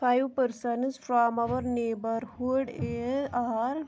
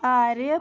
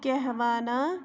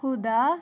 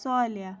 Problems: background conversations at intervals